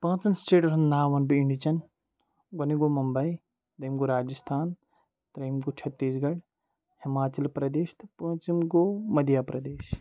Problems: background sounds at intervals